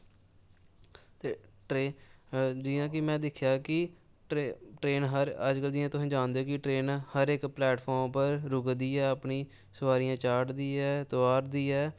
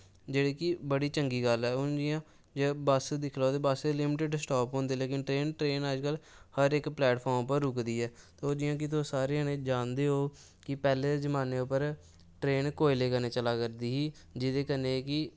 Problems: background sounds at intervals